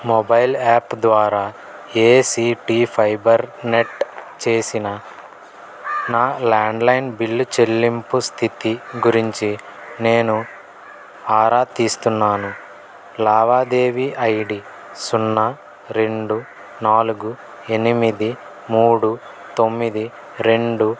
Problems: none marked